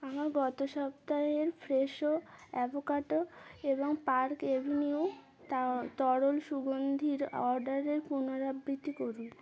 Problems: continuous background conversations